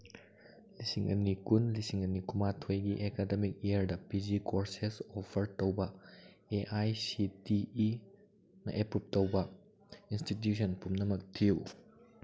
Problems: background conversations at intervals